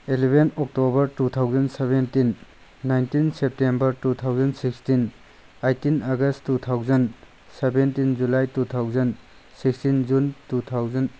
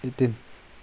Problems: constant background noise